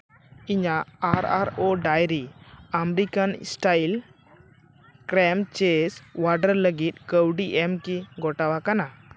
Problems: background sounds at intervals